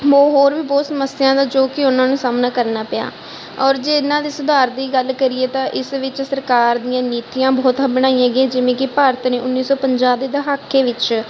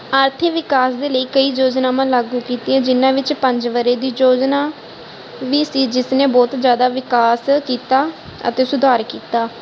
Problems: none marked